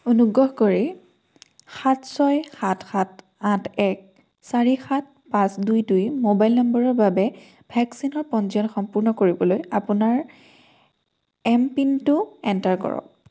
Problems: none marked